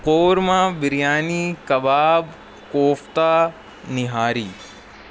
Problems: constant background noise